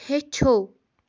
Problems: none marked